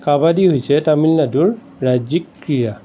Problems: none marked